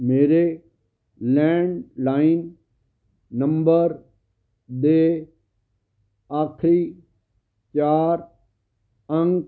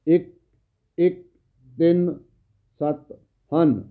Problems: background sounds at intervals